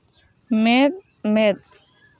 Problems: none marked